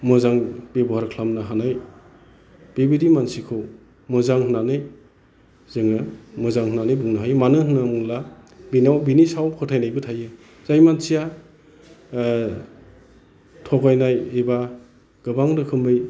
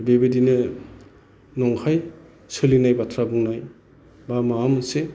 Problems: none marked